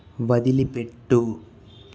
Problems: none marked